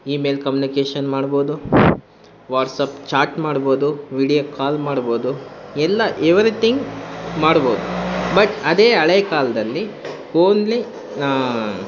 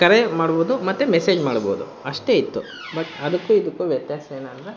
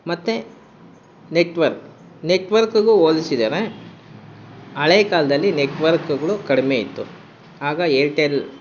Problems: constant background noise